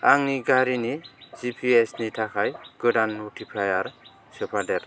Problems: none marked